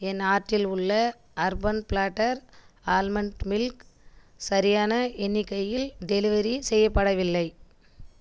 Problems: none marked